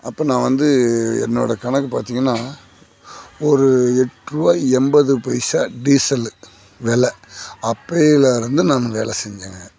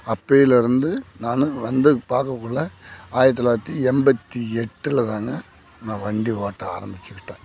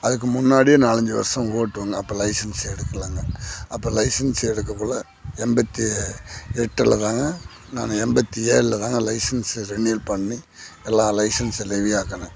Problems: constant background noise